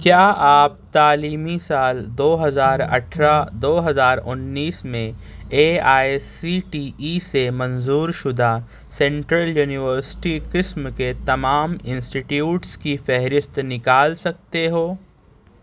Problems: none marked